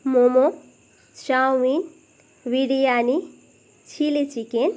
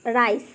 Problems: none marked